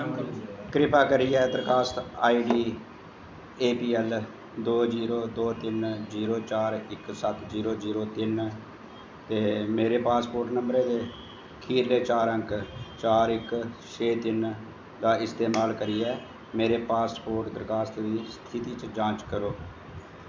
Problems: constant background noise, echo